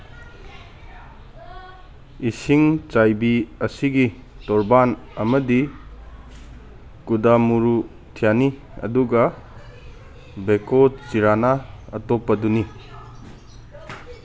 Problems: background sounds at intervals